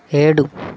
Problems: none marked